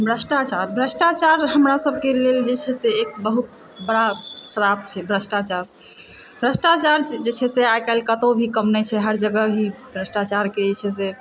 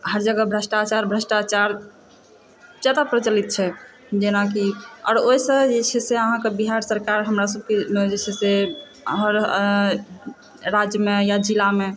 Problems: constant background noise, echo